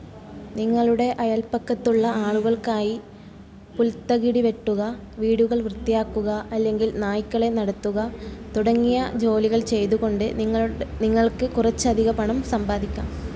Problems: low volume